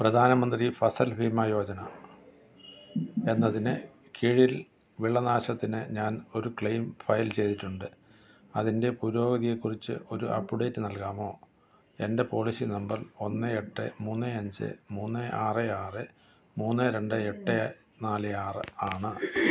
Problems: background sounds at intervals